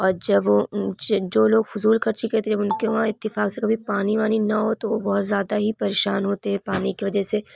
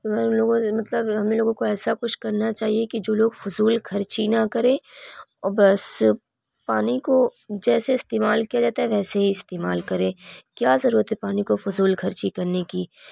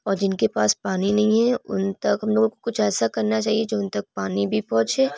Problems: background conversations at intervals